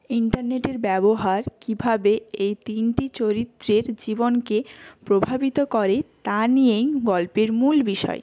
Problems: none marked